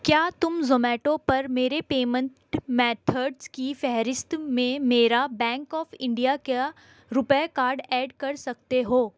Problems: constant background noise